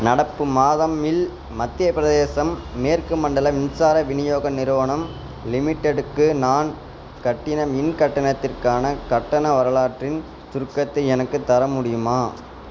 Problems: constant background noise